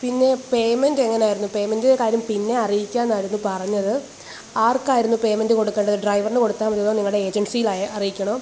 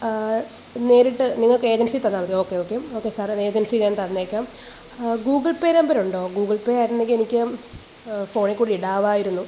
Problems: constant background noise